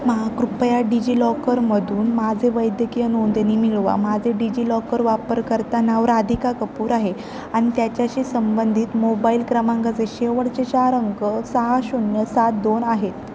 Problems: constant background noise